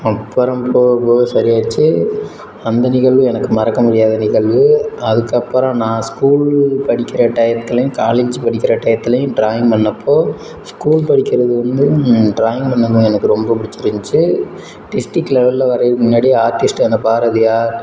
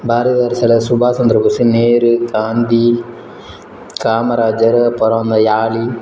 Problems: background sounds at intervals